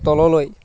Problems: none marked